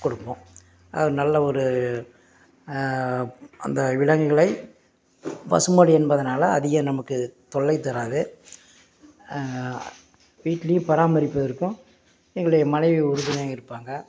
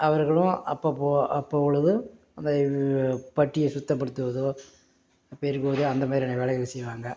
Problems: none marked